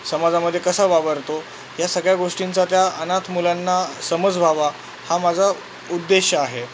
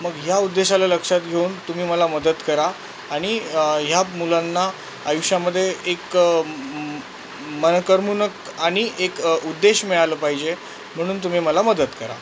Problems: constant background noise